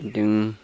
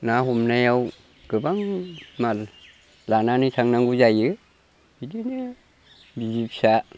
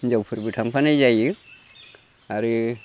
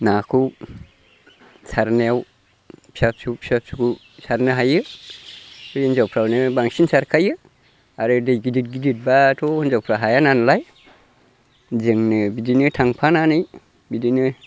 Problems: constant background noise